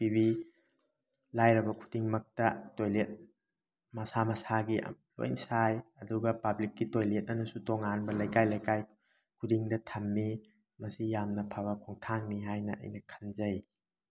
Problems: background sounds at intervals